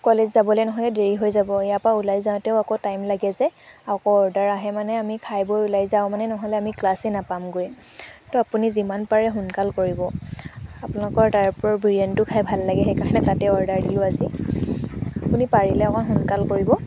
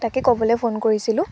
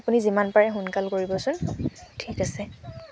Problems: constant background noise